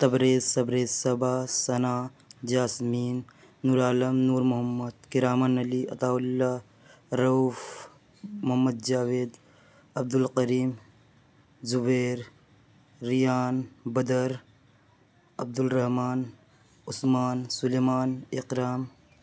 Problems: none marked